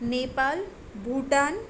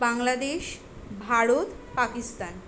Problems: constant background noise